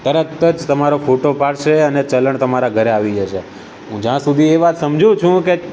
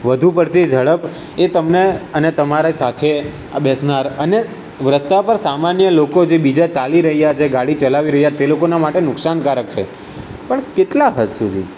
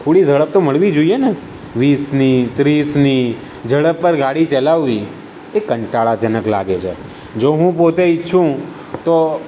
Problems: none marked